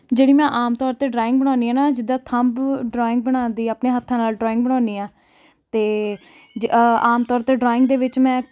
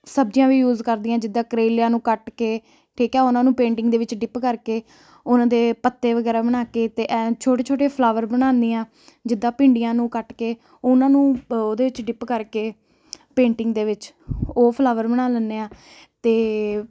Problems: none marked